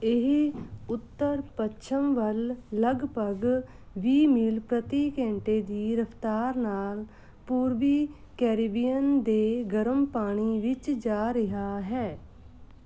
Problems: constant background noise